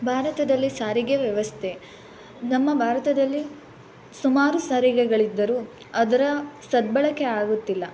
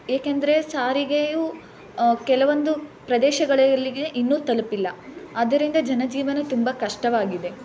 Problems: constant background noise